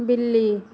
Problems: constant background noise, echo